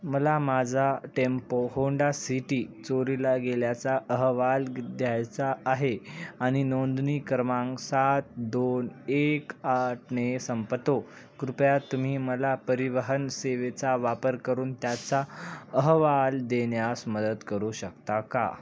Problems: none marked